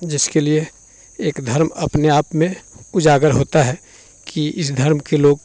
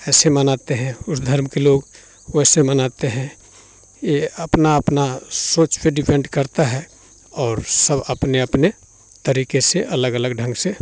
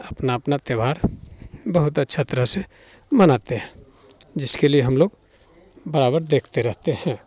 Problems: constant background noise, continuous background conversations